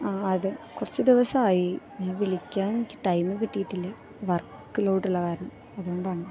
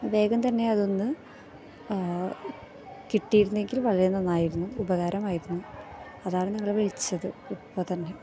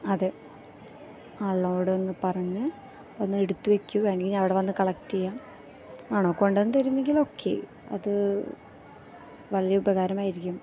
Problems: background sounds at intervals